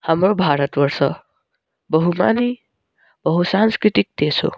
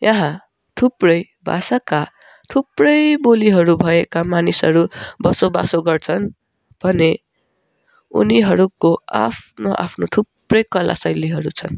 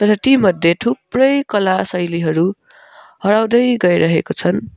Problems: background sounds at intervals